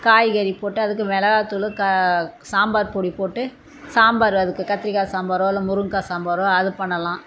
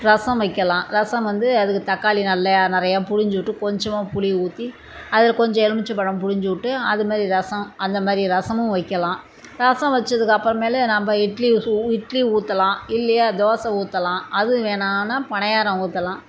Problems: constant background noise